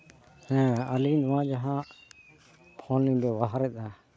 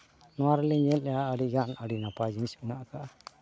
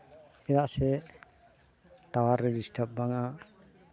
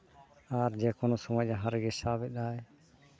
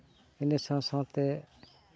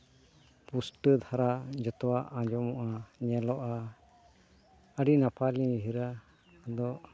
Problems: none marked